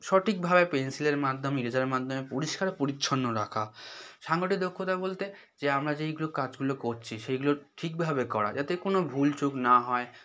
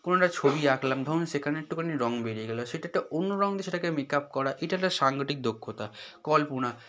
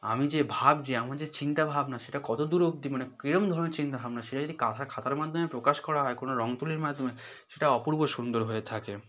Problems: background conversations at intervals